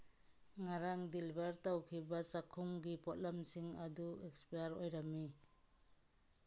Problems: background sounds at intervals